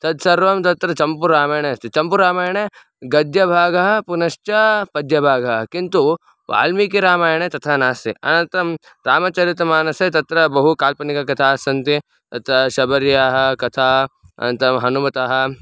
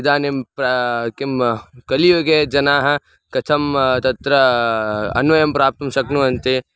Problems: none marked